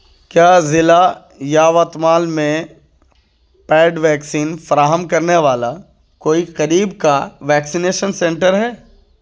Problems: constant background noise